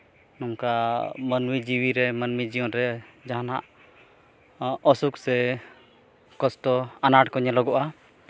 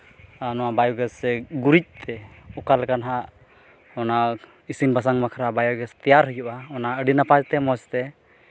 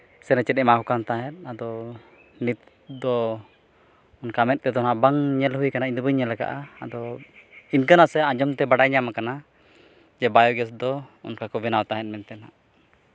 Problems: none marked